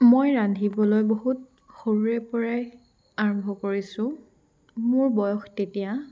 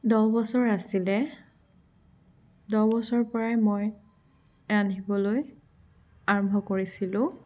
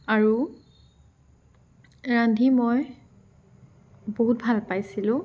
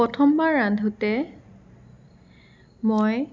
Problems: none marked